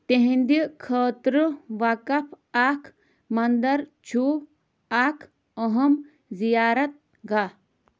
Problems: constant background noise